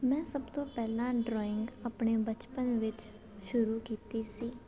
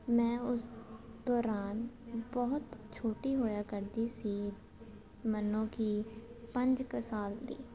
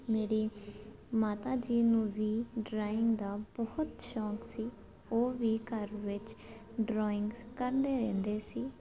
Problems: none marked